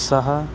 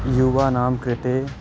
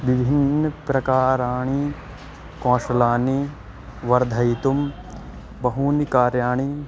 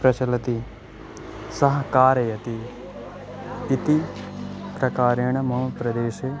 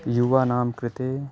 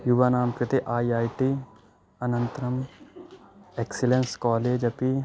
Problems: background sounds at intervals